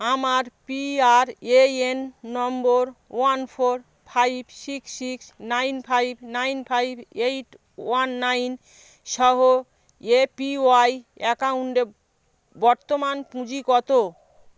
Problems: background sounds at intervals